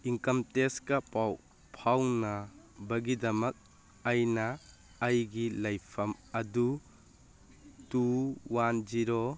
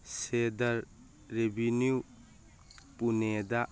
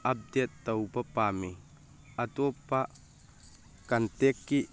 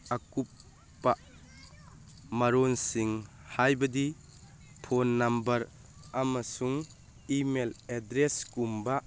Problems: background sounds at intervals